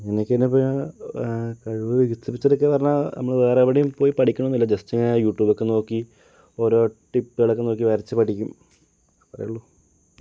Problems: low volume